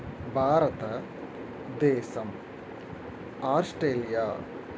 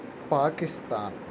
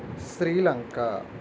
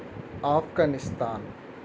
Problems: constant background noise